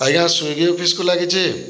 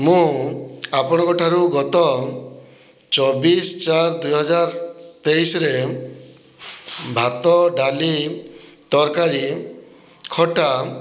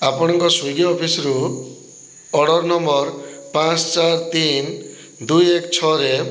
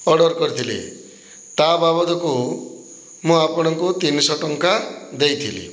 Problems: low volume